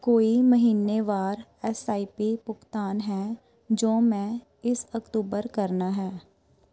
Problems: background sounds at intervals, background conversations at intervals